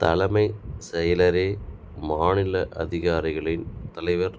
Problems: none marked